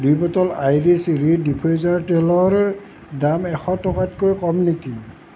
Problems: constant background noise